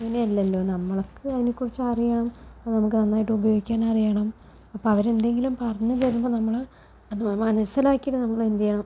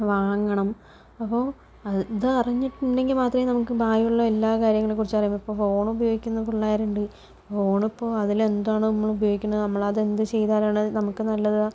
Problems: low volume